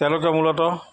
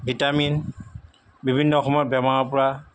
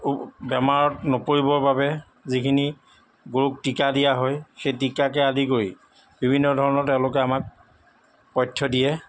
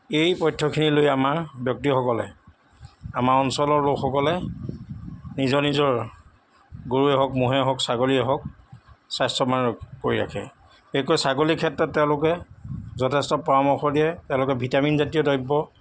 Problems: background sounds at intervals